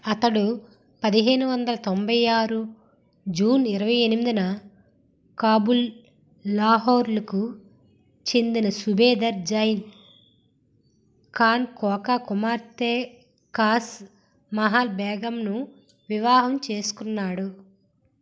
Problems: none marked